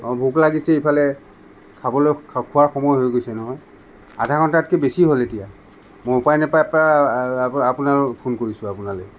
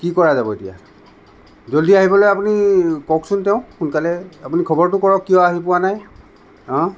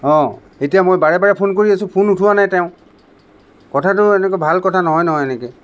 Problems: none marked